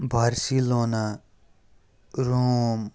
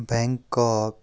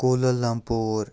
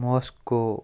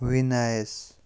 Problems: background sounds at intervals